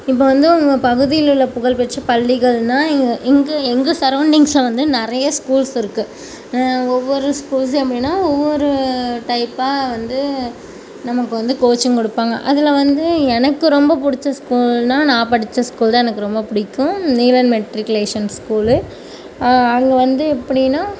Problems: background sounds at intervals